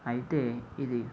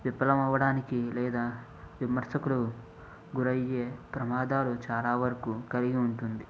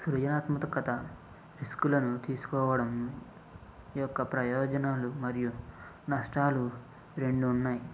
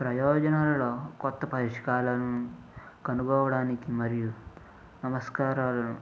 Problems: low volume